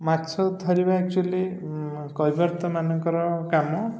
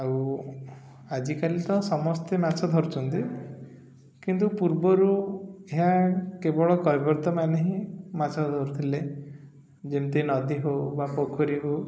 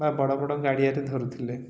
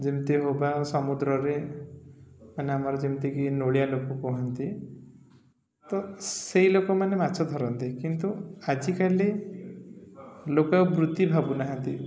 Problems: none marked